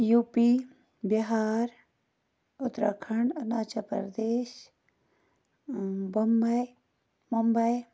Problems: none marked